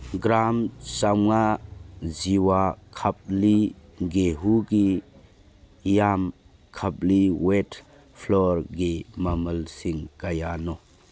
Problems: none marked